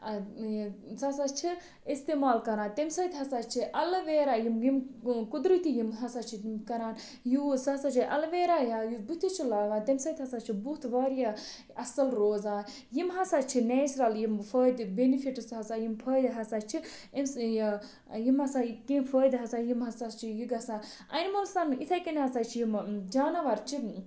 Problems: constant background noise